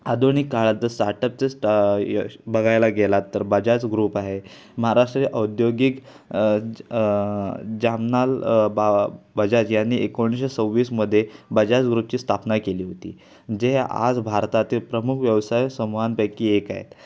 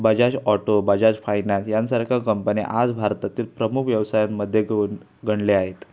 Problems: constant background noise, background conversations at intervals